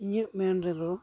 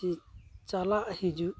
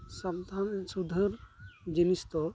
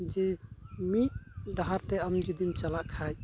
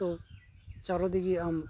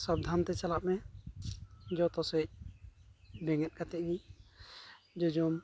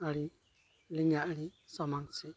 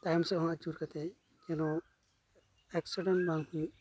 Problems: constant background noise